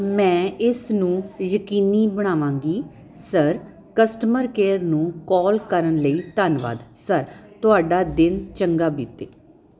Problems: constant background noise